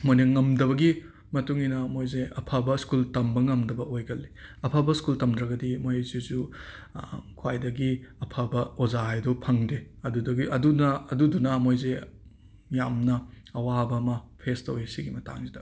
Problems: background sounds at intervals